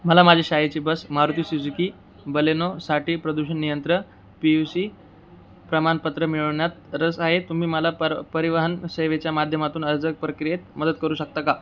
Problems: none marked